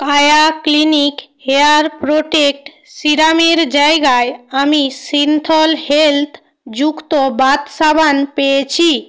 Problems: none marked